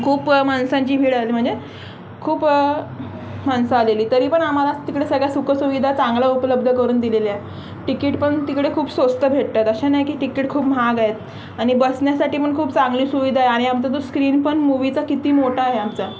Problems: constant background noise, continuous background conversations